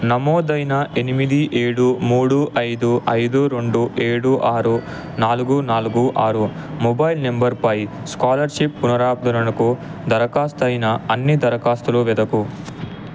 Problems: constant background noise